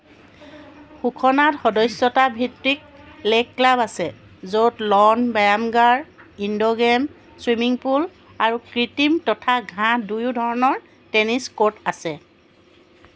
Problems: constant background noise, background conversations at intervals